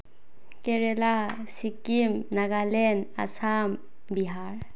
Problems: low volume